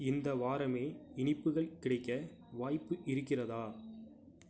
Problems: none marked